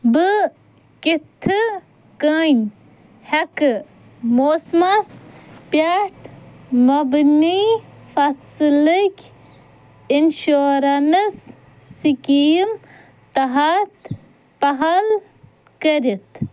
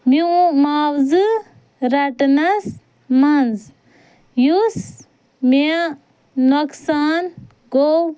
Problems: none marked